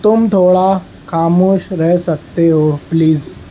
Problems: constant background noise